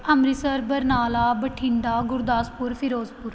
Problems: none marked